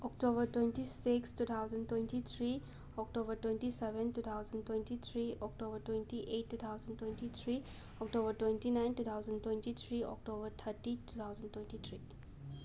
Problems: constant background noise